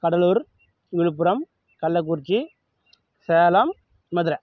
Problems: none marked